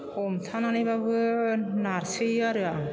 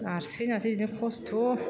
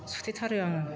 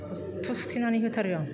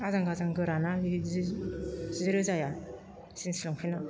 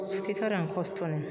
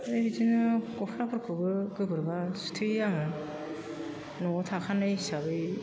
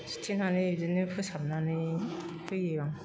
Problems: constant background noise